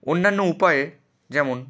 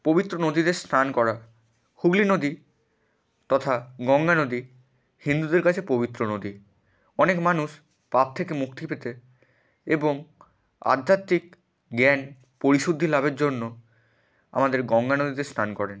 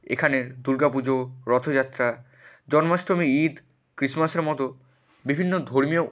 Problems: none marked